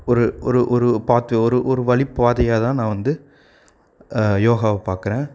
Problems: none marked